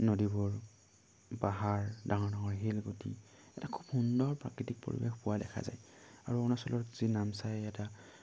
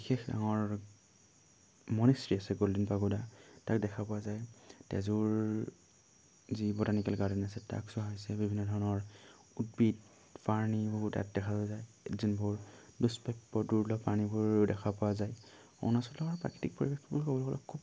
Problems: none marked